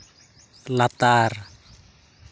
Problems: constant background noise